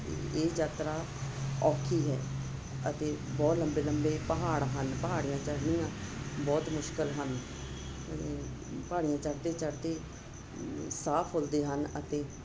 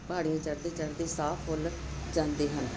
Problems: constant background noise